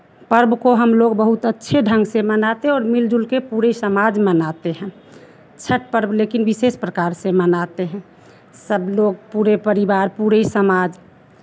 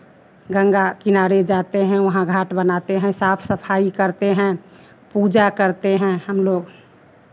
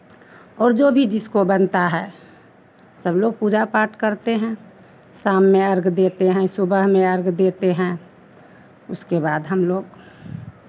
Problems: none marked